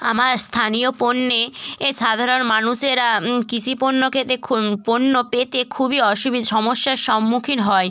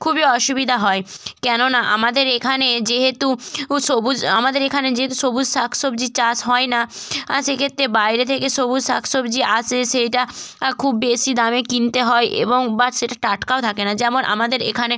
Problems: none marked